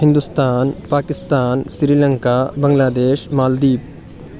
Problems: none marked